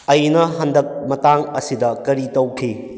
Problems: none marked